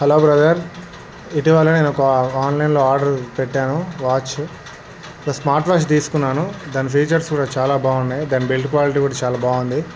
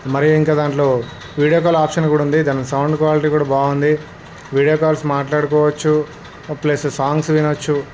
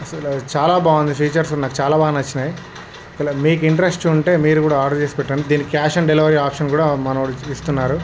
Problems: none marked